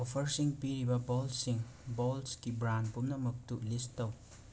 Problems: constant background noise, low volume